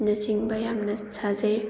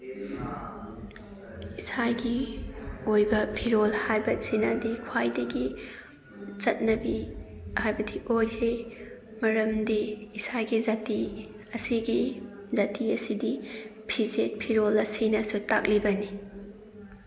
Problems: background sounds at intervals, background conversations at intervals